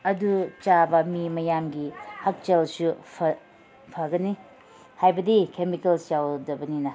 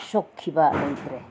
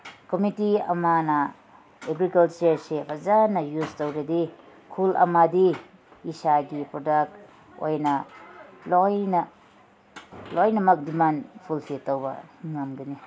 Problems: none marked